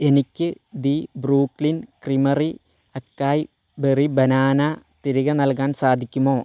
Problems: none marked